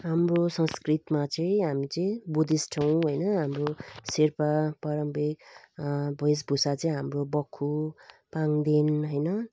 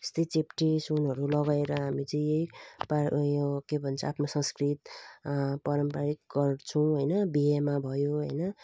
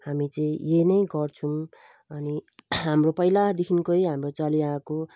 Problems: constant background noise